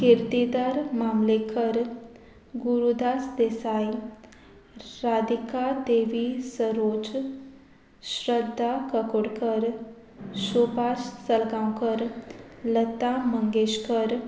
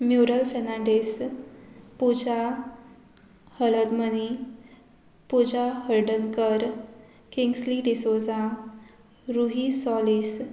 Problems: background sounds at intervals